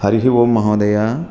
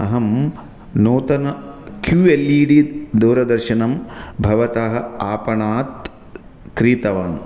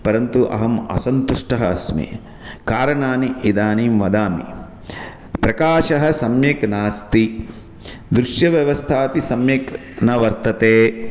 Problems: constant background noise